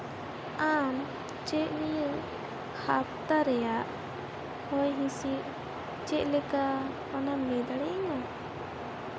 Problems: constant background noise